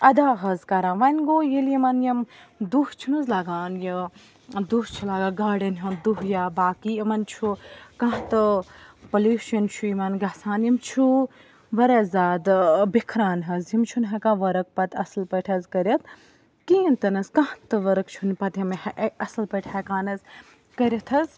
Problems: background sounds at intervals, background conversations at intervals